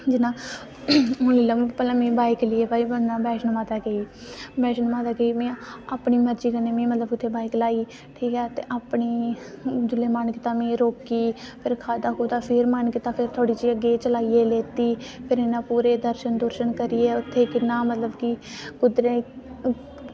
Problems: constant background noise